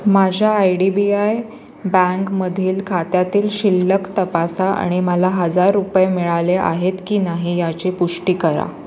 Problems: none marked